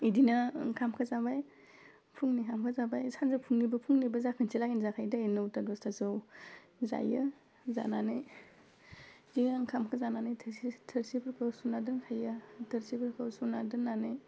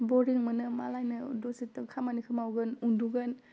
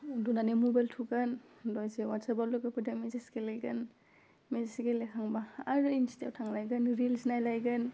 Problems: constant background noise